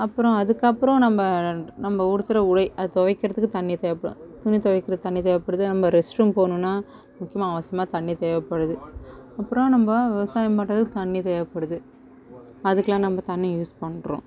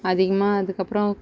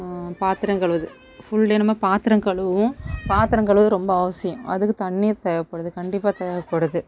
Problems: background sounds at intervals, background conversations at intervals